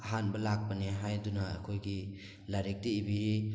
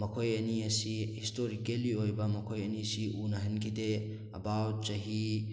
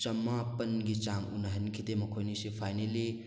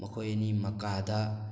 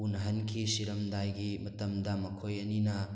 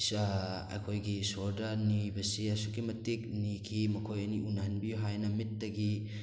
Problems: background sounds at intervals